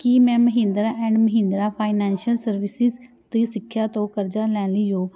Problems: background conversations at intervals